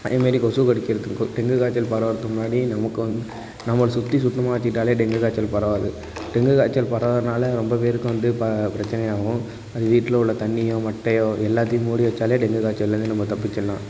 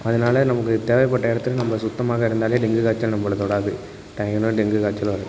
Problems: constant background noise